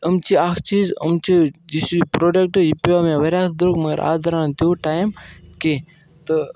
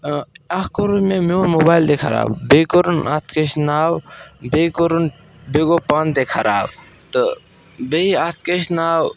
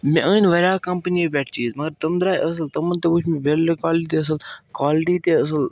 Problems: background sounds at intervals